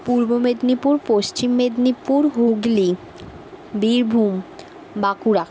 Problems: background sounds at intervals